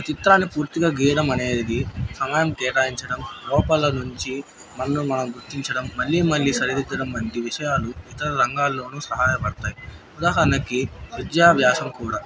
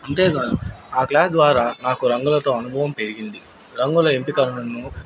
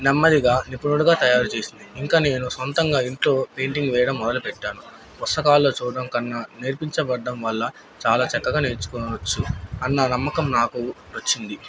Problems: background sounds at intervals